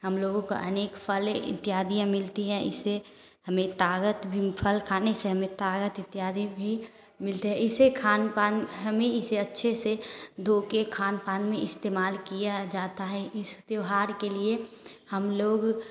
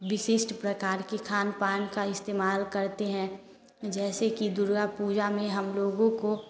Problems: constant background noise